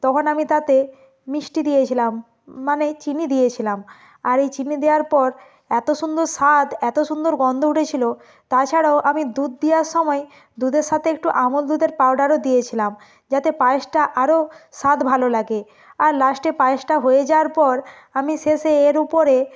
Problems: none marked